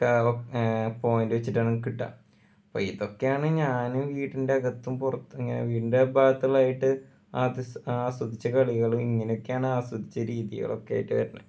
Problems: none marked